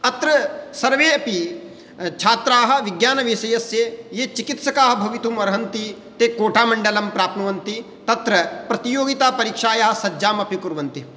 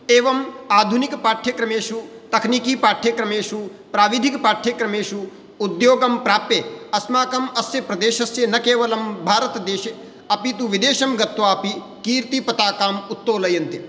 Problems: background conversations at intervals